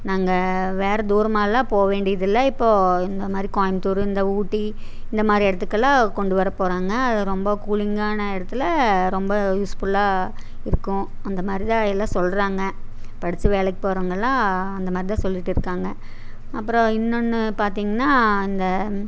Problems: constant background noise